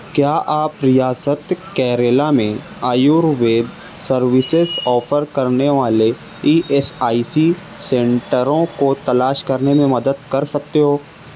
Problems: none marked